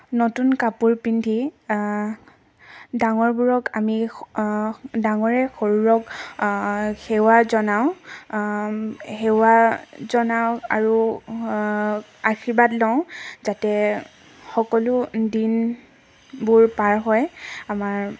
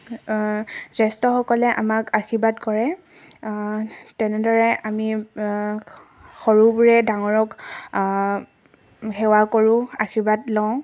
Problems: background sounds at intervals